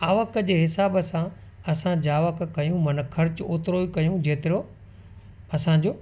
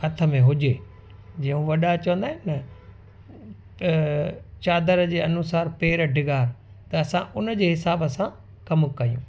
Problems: constant background noise